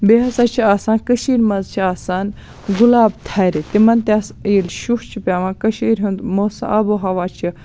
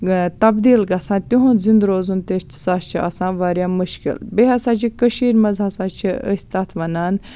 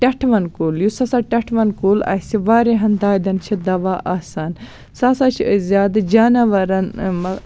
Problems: background sounds at intervals